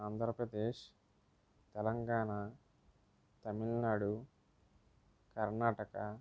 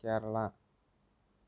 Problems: low volume